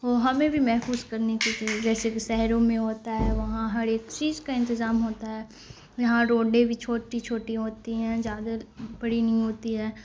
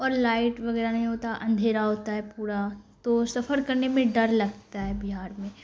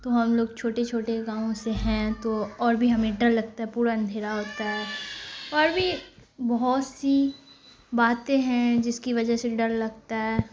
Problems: constant background noise